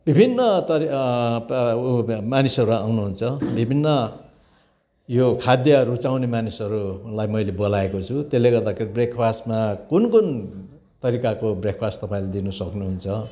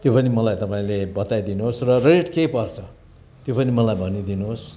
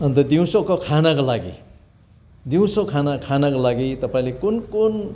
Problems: constant background noise